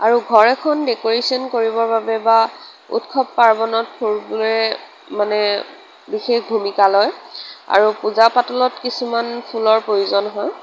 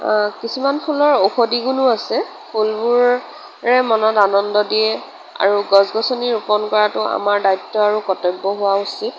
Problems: none marked